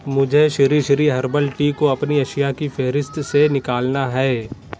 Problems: constant background noise